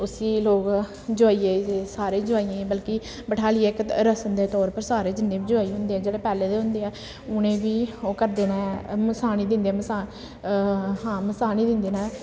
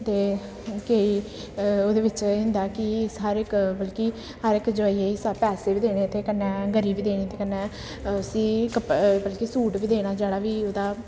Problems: constant background noise, echo